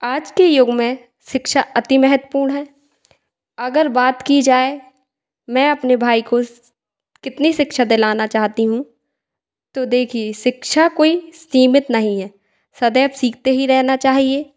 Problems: echo